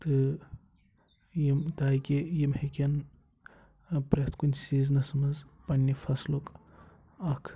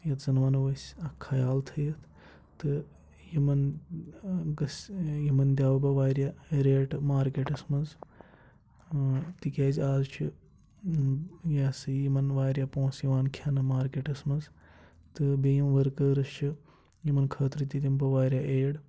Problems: constant background noise, low volume